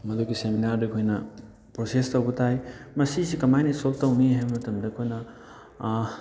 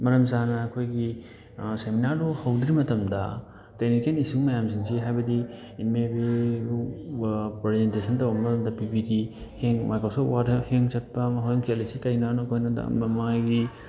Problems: background conversations at intervals